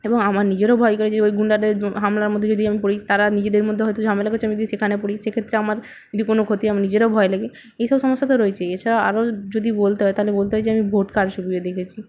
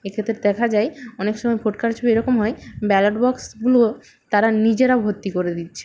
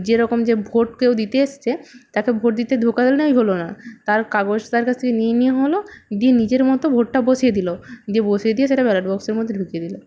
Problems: background sounds at intervals